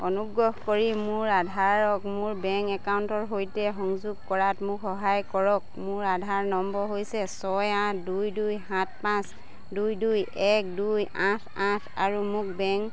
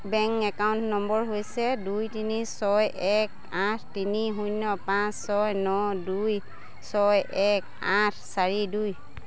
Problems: none marked